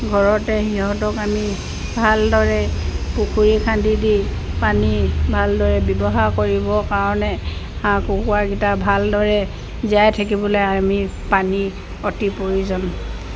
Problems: constant background noise